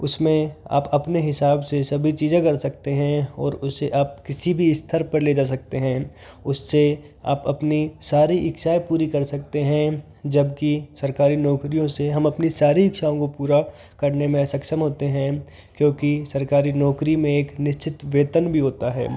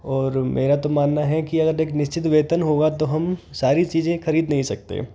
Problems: none marked